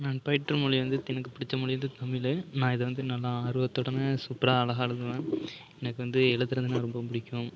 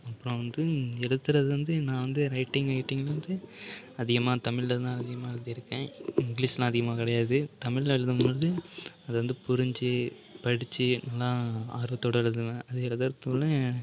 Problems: background conversations at intervals